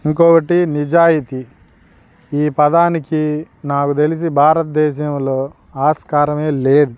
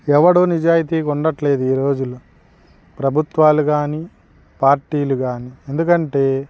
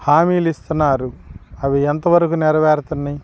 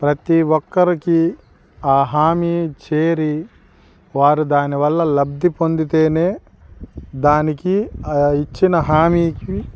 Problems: background sounds at intervals